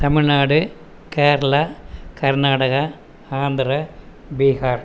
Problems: constant background noise